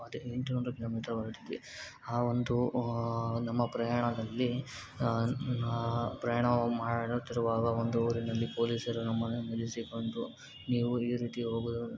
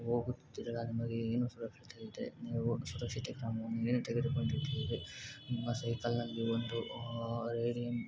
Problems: constant background noise